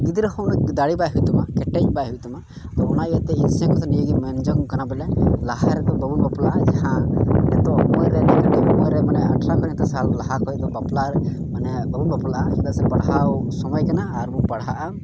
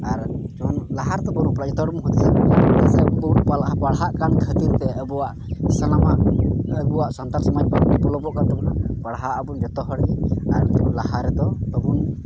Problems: constant background noise, low volume